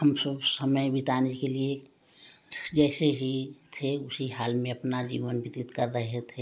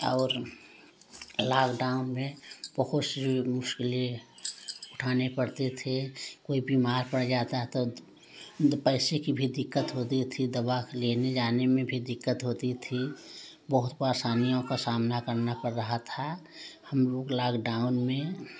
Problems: none marked